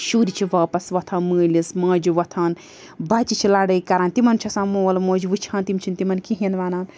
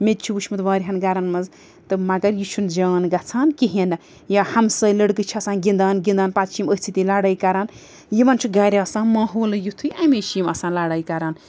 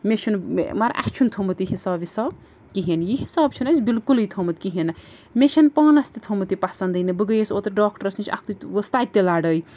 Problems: background sounds at intervals